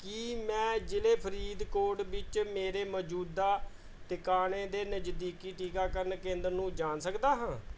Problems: background sounds at intervals